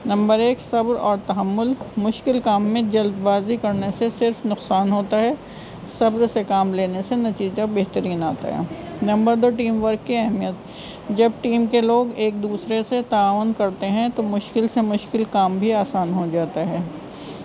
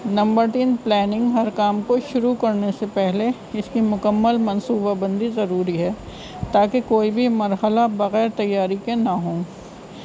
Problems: constant background noise